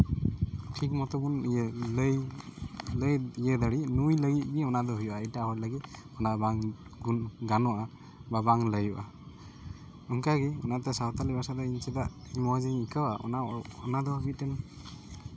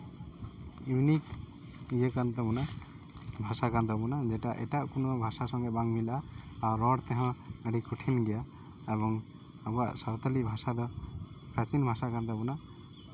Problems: none marked